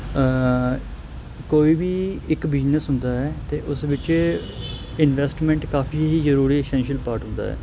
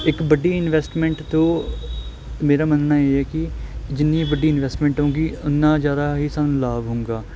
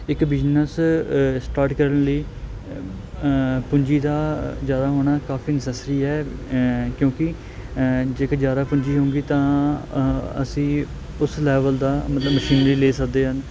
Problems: constant background noise